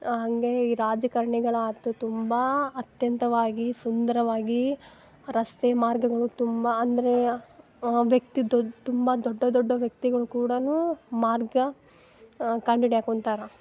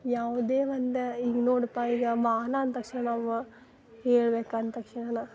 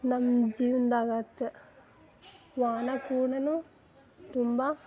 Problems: none marked